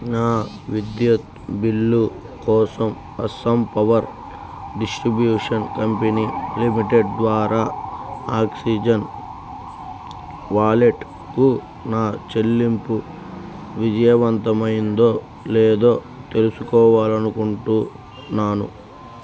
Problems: constant background noise